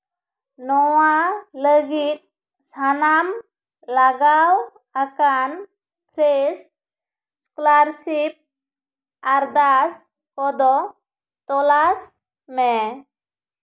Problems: echo